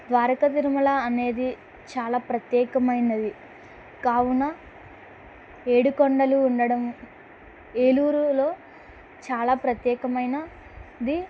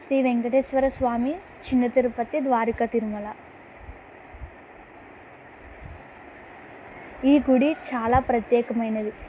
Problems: constant background noise